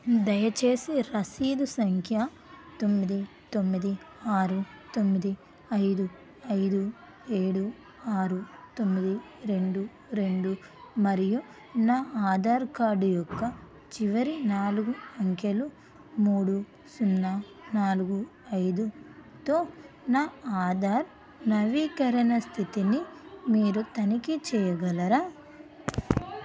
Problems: constant background noise